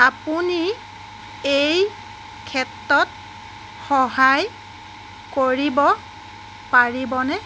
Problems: constant background noise